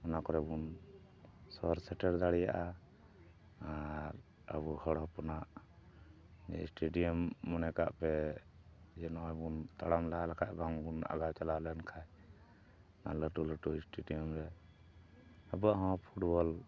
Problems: background sounds at intervals